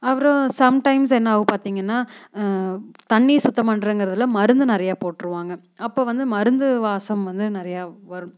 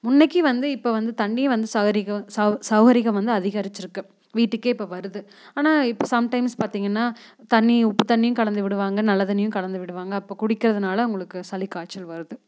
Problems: none marked